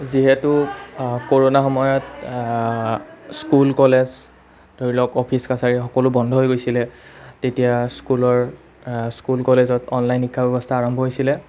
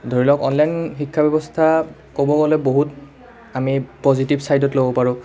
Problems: none marked